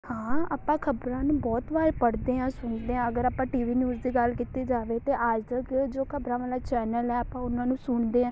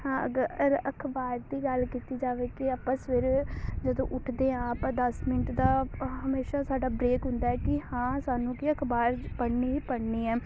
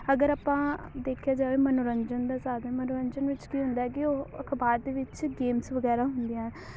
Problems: constant background noise, background conversations at intervals